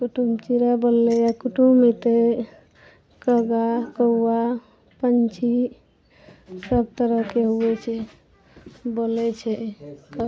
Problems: none marked